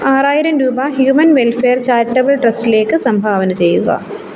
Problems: background sounds at intervals